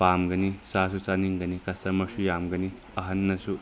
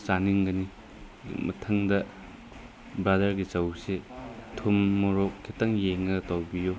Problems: constant background noise